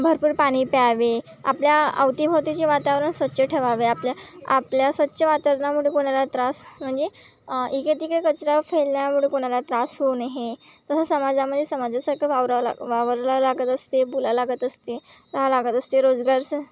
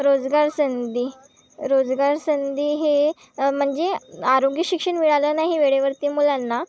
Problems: none marked